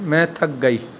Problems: constant background noise